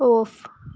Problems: low volume